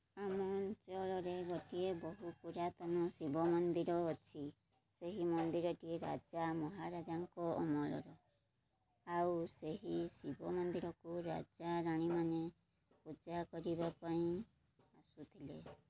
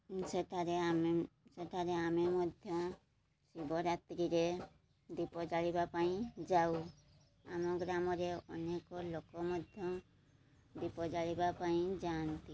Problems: low volume